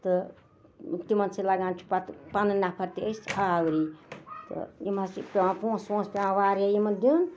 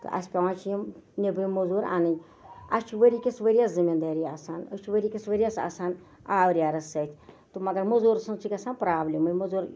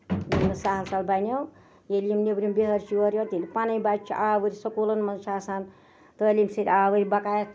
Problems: none marked